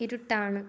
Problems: none marked